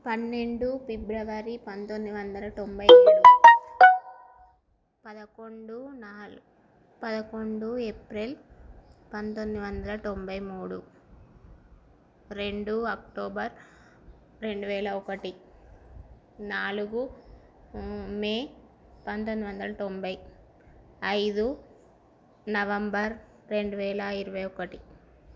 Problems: constant background noise, low volume